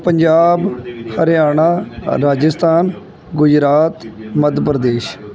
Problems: background conversations at intervals